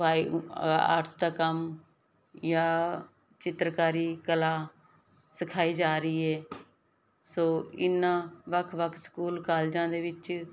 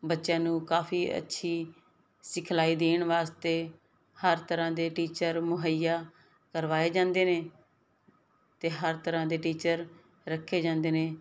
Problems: none marked